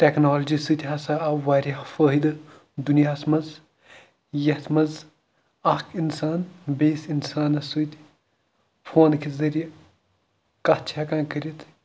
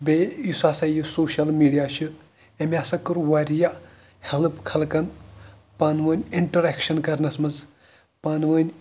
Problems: none marked